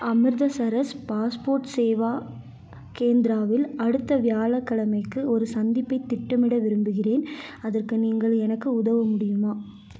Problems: none marked